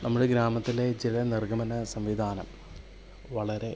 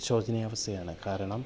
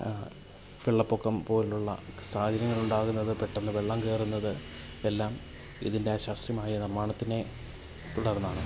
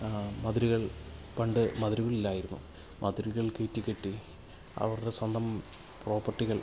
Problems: constant background noise, low volume